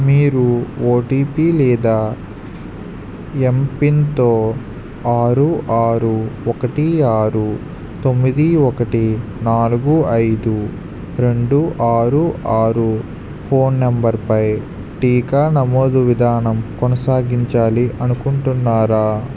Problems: constant background noise